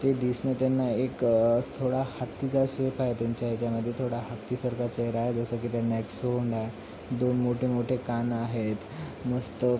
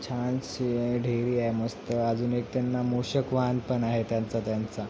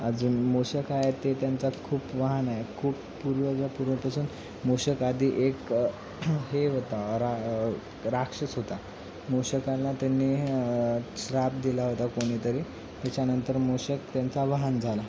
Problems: constant background noise